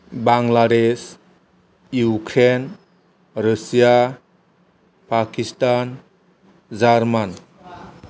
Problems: none marked